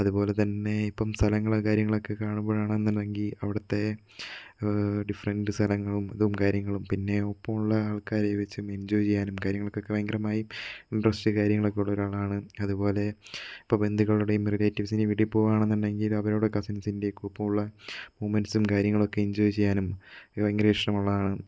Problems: background sounds at intervals